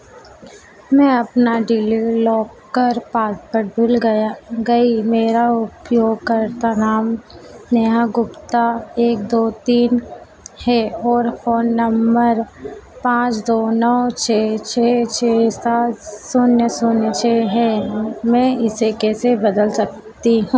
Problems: constant background noise